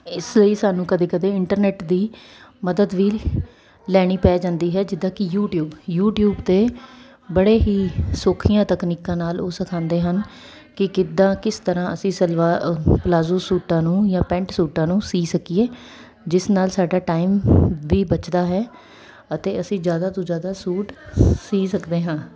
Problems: none marked